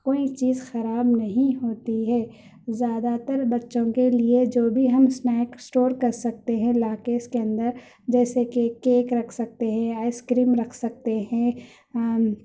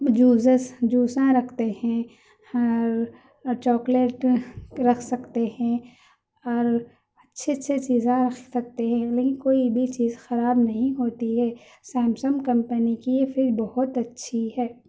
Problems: none marked